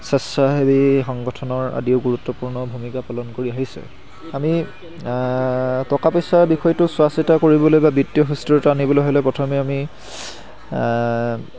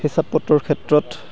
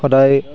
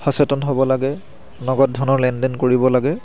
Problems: constant background noise